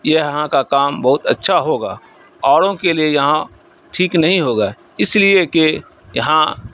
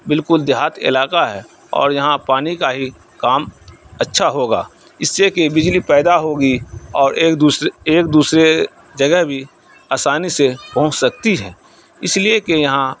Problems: none marked